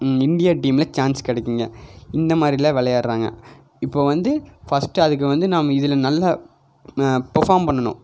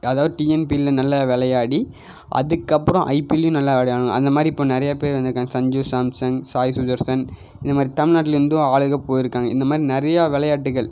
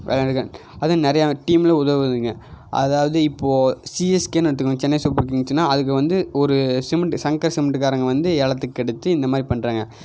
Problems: none marked